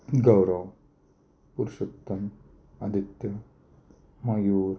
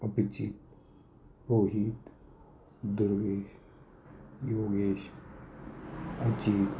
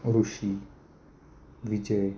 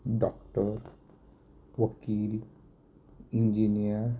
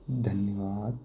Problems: constant background noise, echo, low volume